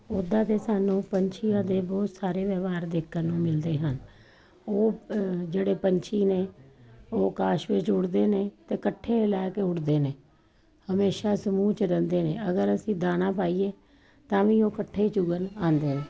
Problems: none marked